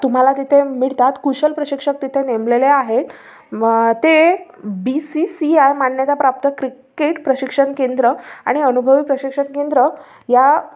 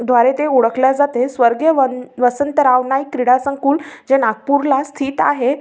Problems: none marked